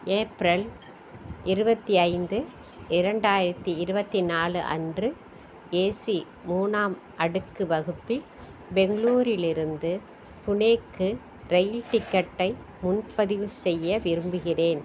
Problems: constant background noise